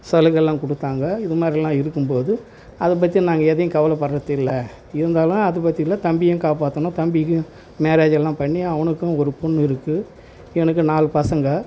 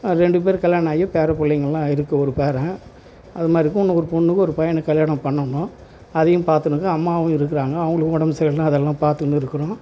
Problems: constant background noise